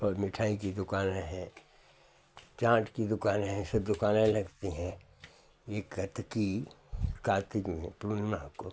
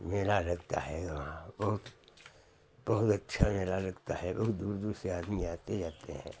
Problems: constant background noise